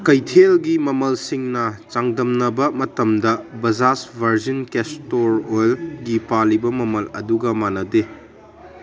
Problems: background conversations at intervals